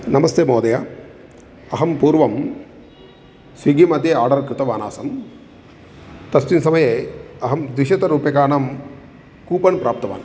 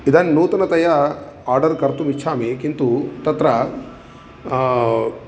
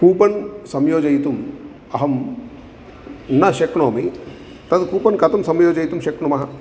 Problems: none marked